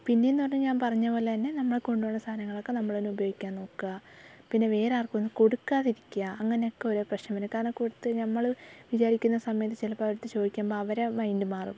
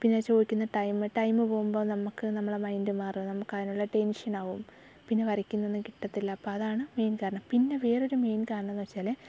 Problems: background sounds at intervals, low volume